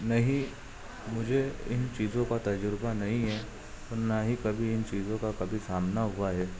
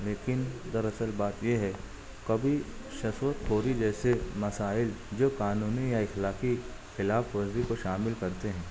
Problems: constant background noise, background conversations at intervals, low volume